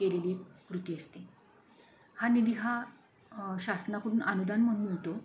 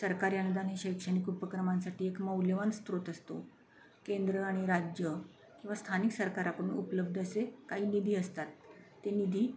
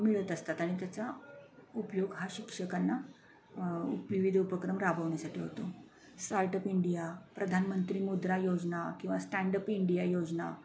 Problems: none marked